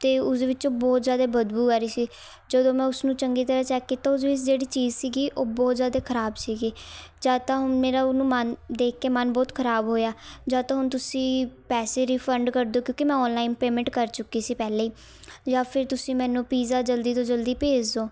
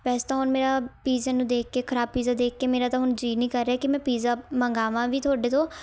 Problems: none marked